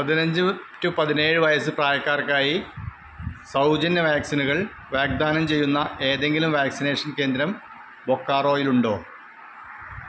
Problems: constant background noise